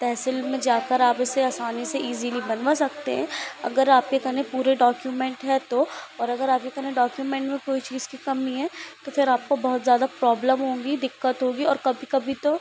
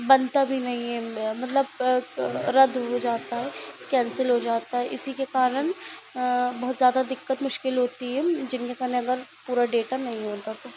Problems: constant background noise